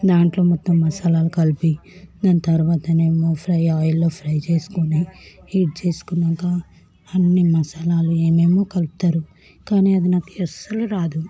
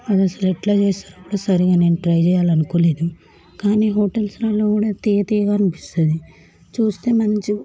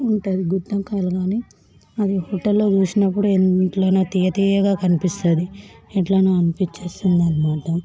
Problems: background sounds at intervals, background conversations at intervals, low volume